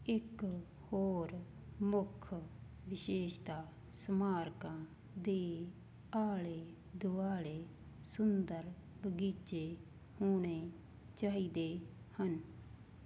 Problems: constant background noise